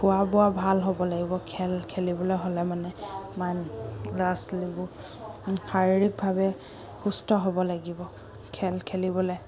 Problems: background sounds at intervals